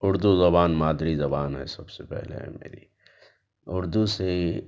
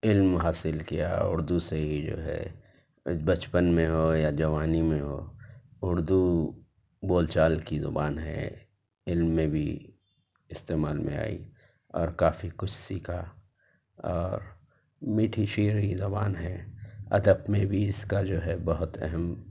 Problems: none marked